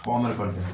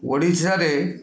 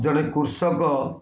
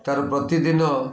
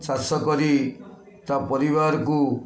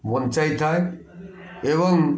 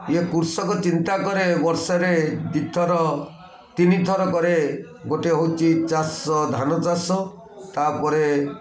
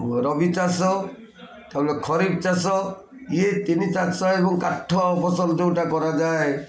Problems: constant background noise, continuous background conversations